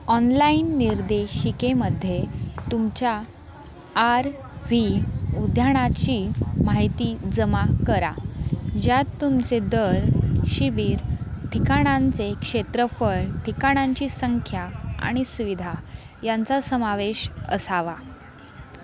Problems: constant background noise, continuous background conversations